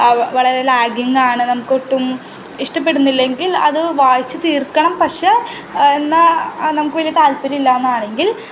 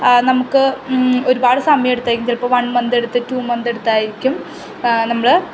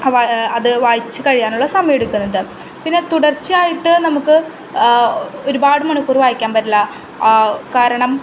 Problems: constant background noise